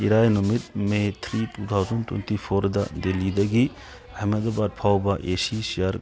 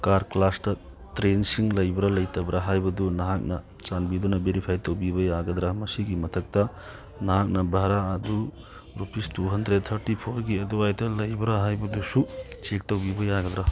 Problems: background sounds at intervals, background conversations at intervals